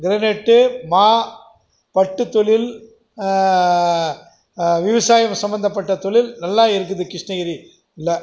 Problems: none marked